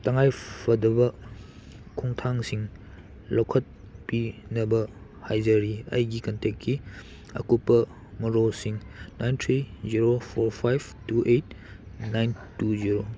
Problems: none marked